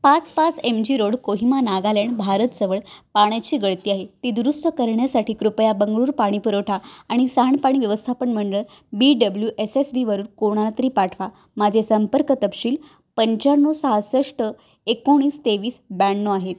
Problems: constant background noise